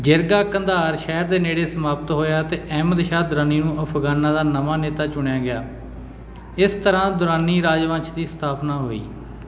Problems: none marked